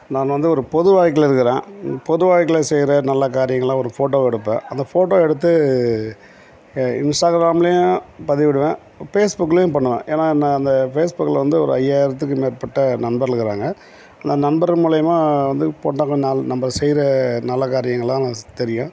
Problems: background sounds at intervals